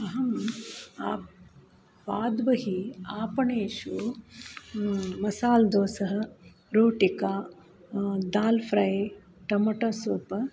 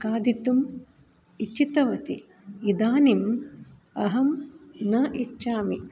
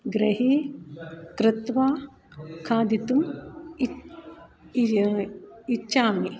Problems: background sounds at intervals